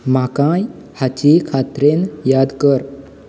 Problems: background sounds at intervals